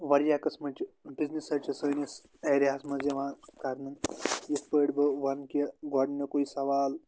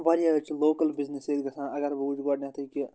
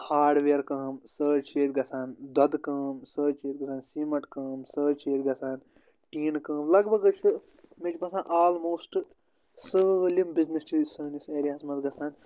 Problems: constant background noise